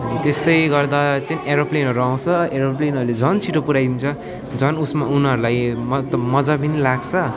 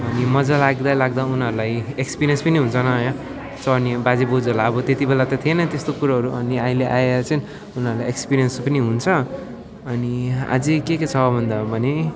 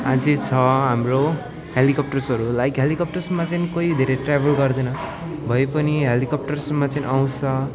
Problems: none marked